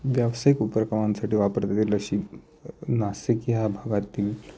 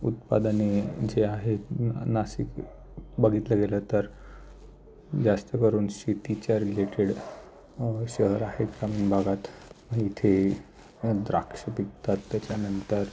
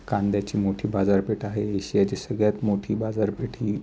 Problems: background sounds at intervals